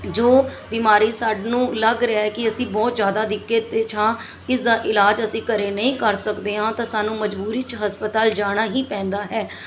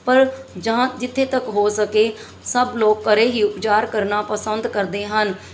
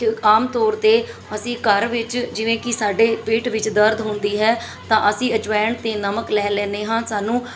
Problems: background sounds at intervals, background conversations at intervals